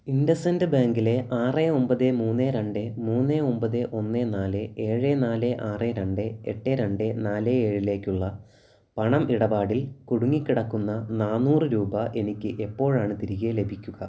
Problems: background sounds at intervals